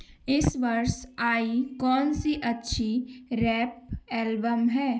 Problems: background sounds at intervals